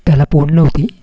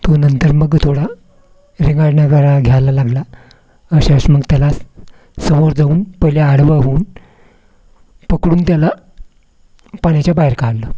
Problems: none marked